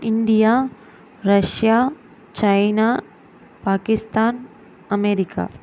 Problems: constant background noise